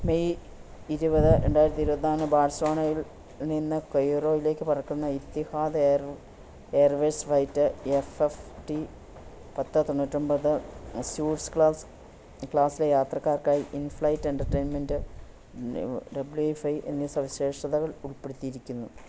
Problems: low volume